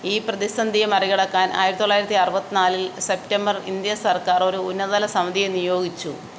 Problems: none marked